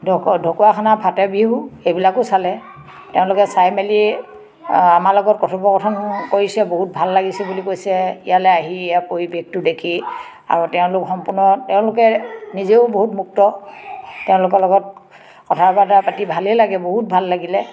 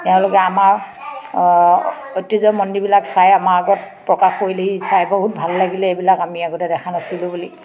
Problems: background sounds at intervals, background conversations at intervals